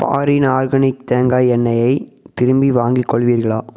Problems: echo